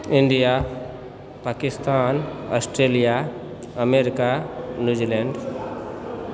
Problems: background conversations at intervals